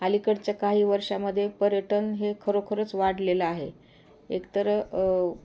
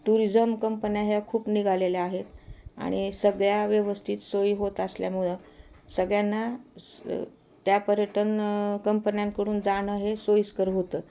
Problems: constant background noise